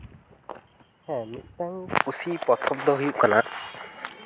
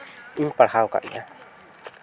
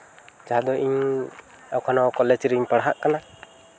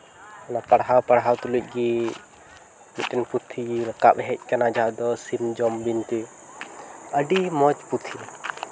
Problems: constant background noise